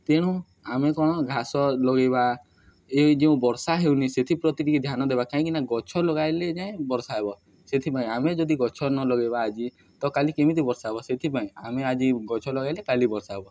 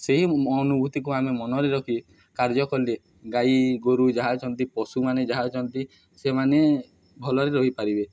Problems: none marked